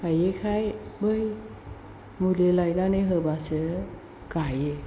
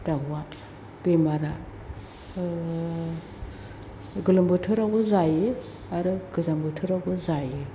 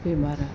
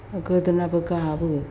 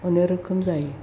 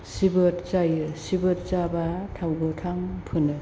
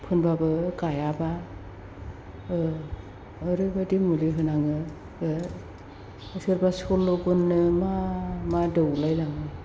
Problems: constant background noise